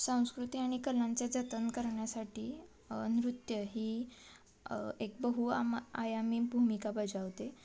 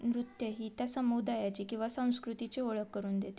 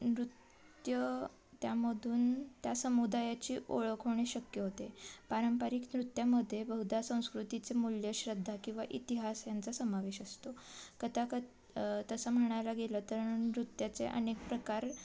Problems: constant background noise, continuous background conversations